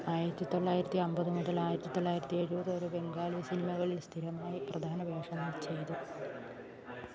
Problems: background conversations at intervals